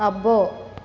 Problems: constant background noise